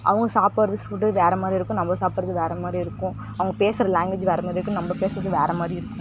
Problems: background sounds at intervals